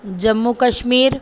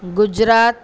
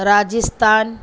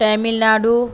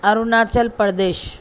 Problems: none marked